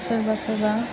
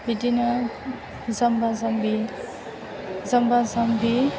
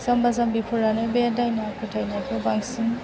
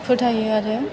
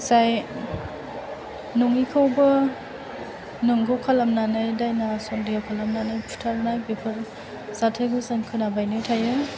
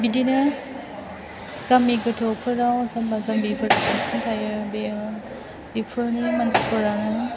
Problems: continuous background conversations